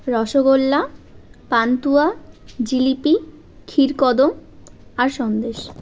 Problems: constant background noise